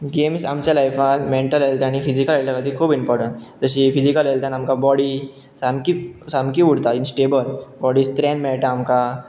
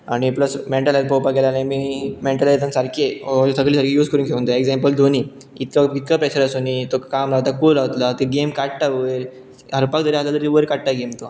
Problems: background sounds at intervals